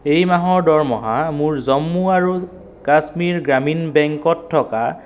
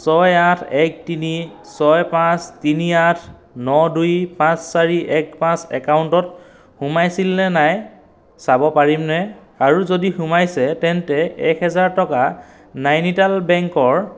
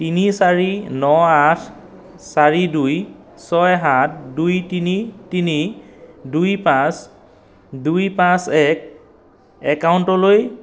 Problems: background sounds at intervals, echo